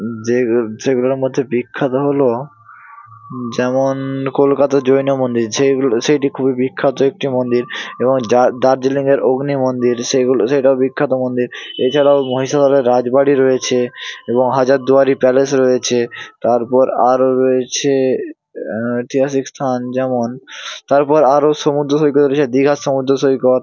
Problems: constant background noise